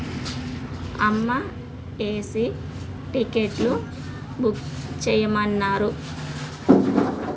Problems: constant background noise